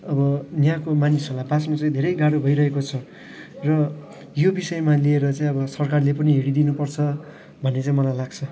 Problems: constant background noise, background conversations at intervals